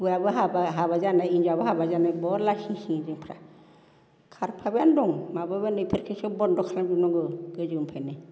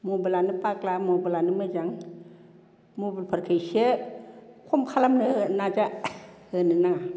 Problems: constant background noise